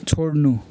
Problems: constant background noise